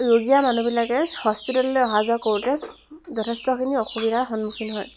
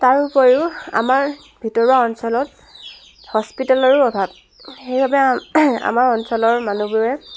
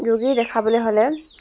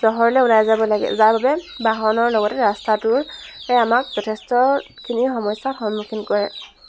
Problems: constant background noise, background conversations at intervals